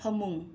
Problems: none marked